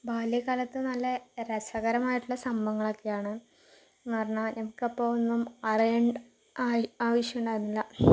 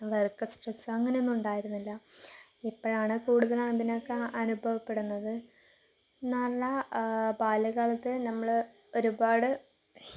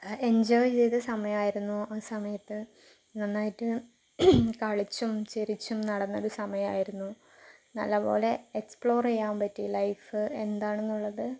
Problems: background sounds at intervals